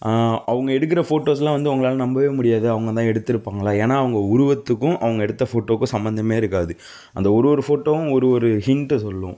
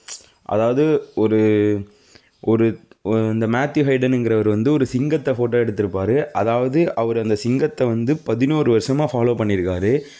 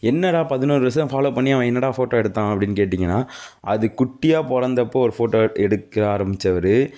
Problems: none marked